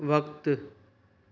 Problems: none marked